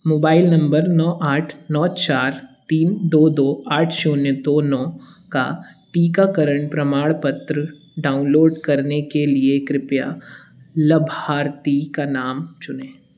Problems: none marked